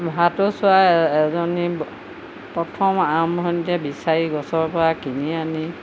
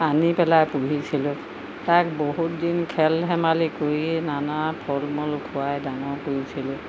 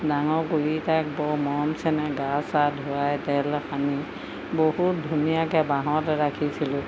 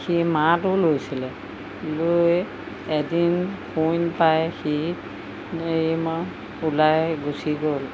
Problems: constant background noise